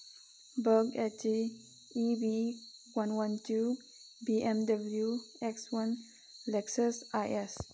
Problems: background sounds at intervals